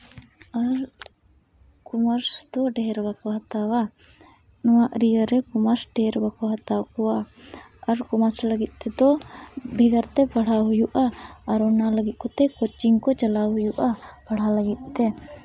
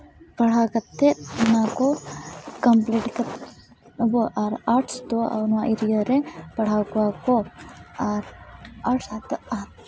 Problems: none marked